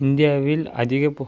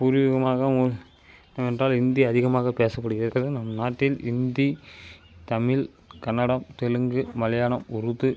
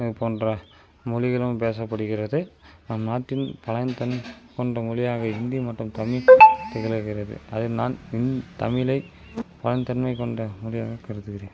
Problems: background sounds at intervals